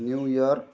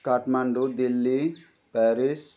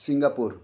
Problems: background conversations at intervals